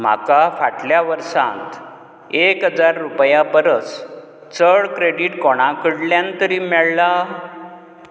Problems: none marked